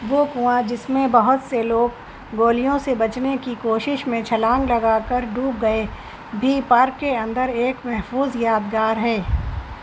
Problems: constant background noise